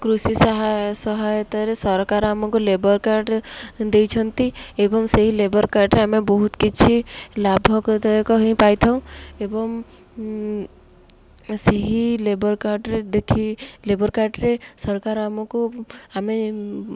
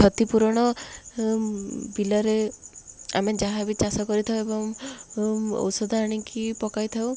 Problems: none marked